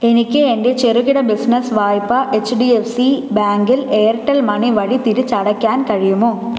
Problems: none marked